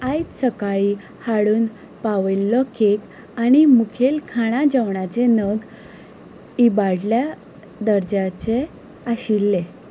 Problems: background sounds at intervals